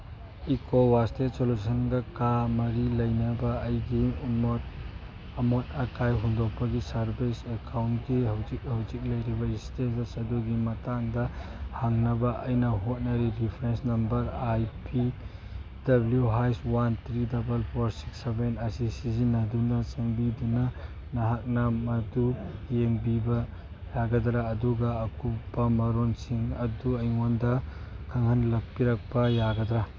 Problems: background sounds at intervals